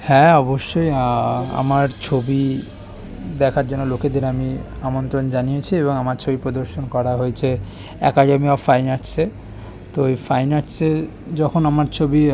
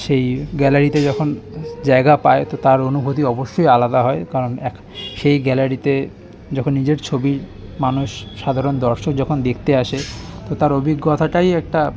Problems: constant background noise, continuous background conversations